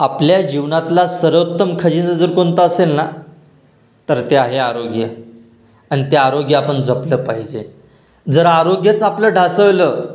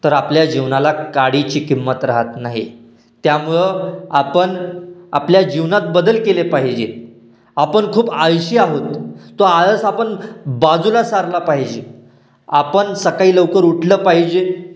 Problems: constant background noise, echo